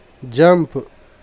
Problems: none marked